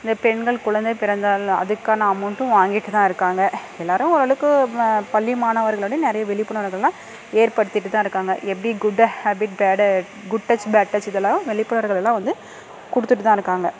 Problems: constant background noise, background conversations at intervals